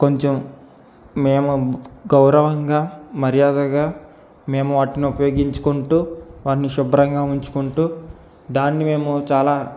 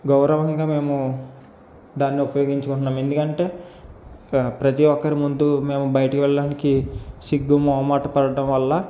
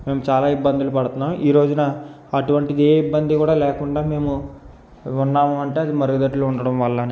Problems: constant background noise